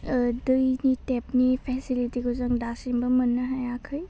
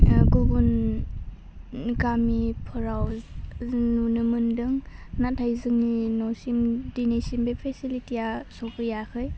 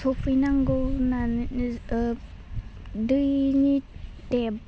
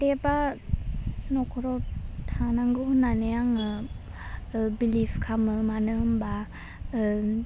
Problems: constant background noise